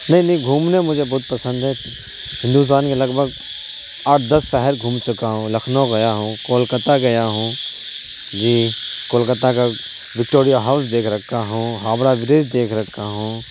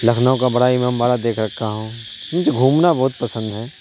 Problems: constant background noise